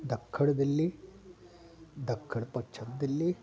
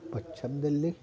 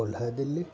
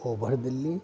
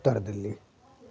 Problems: constant background noise